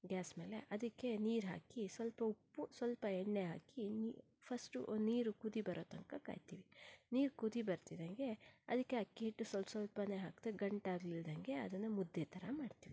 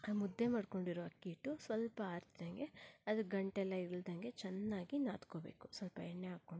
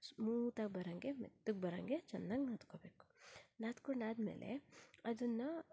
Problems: low volume